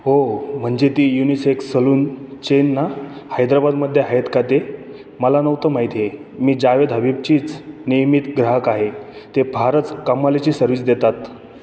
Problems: background sounds at intervals